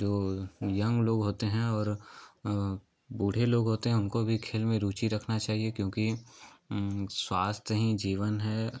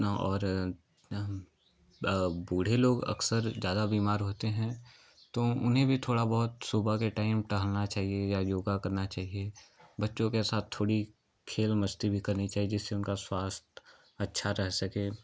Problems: constant background noise, background conversations at intervals